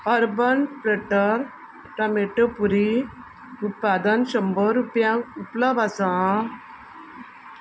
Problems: constant background noise